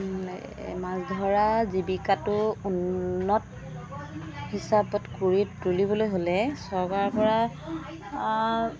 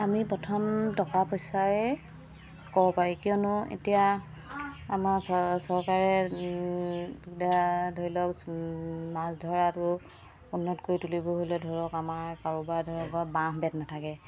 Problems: constant background noise